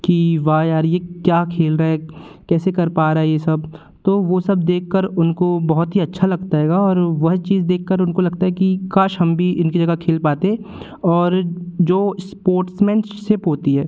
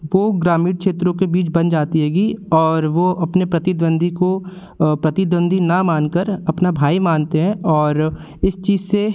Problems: constant background noise